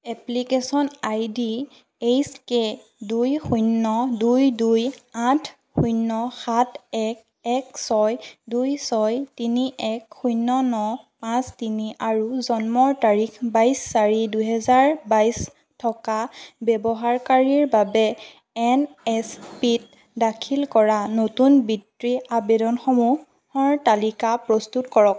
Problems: constant background noise